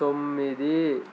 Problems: none marked